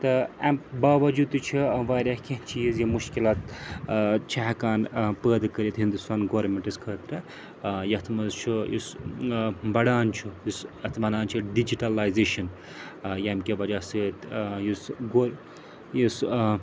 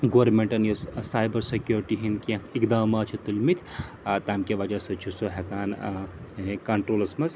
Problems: constant background noise